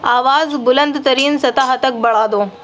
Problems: none marked